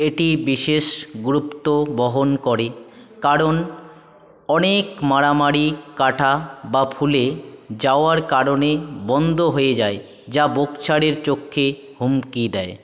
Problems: none marked